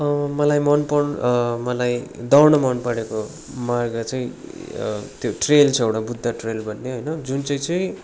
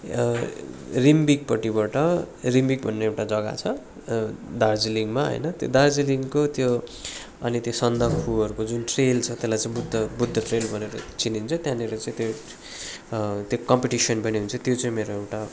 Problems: background sounds at intervals